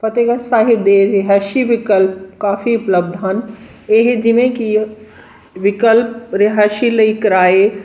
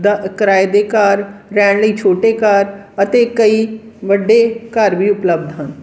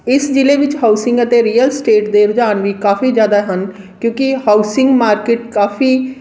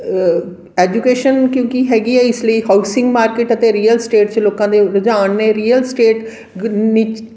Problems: background sounds at intervals, background conversations at intervals